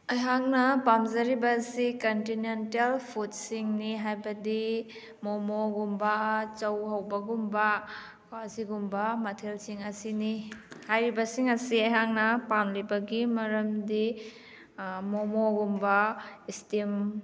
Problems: none marked